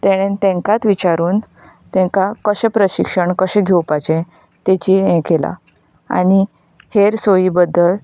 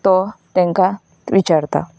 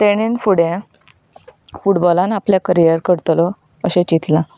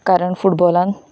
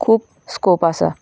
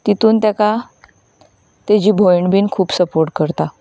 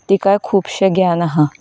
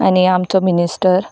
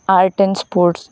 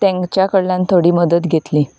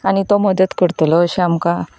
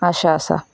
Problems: background sounds at intervals